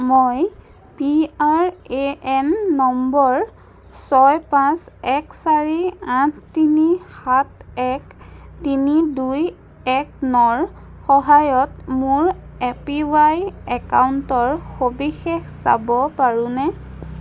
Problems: none marked